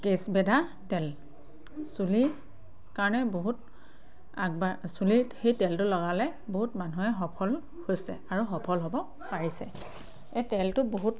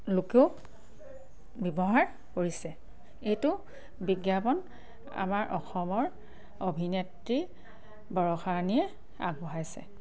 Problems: constant background noise, background conversations at intervals